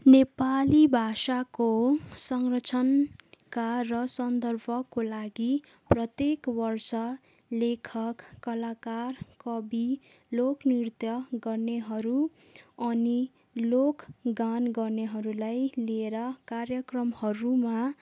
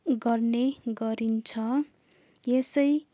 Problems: none marked